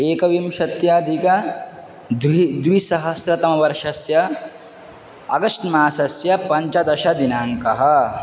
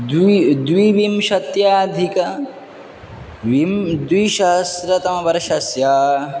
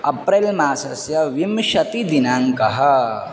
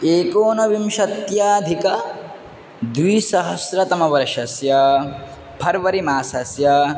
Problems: constant background noise